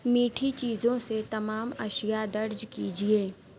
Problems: none marked